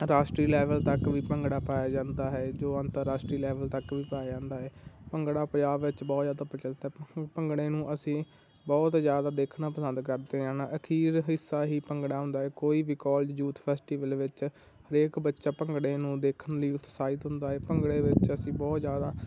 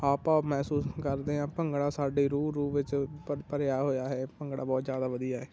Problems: constant background noise